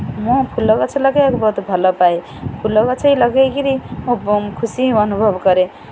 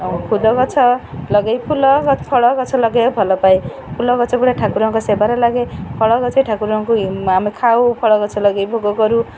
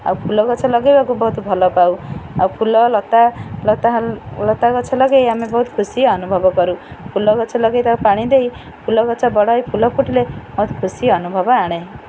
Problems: background conversations at intervals